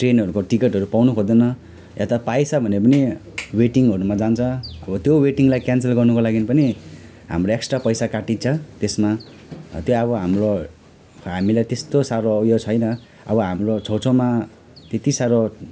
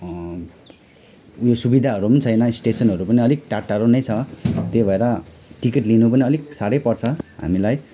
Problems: none marked